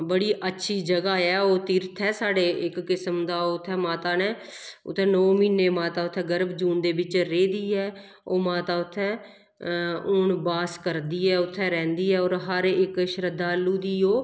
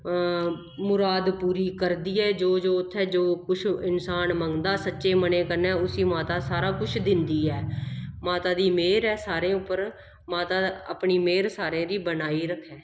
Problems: none marked